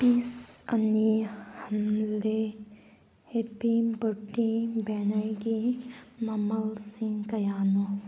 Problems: background sounds at intervals